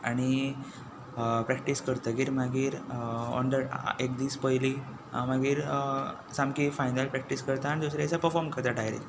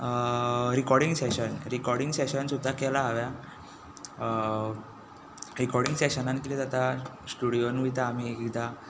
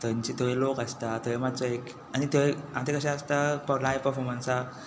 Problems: none marked